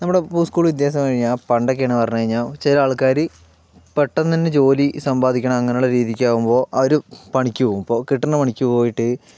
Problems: background sounds at intervals, low volume